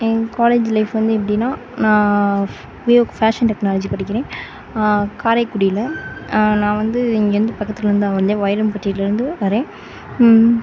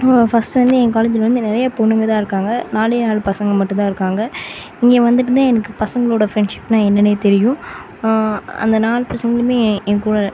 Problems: constant background noise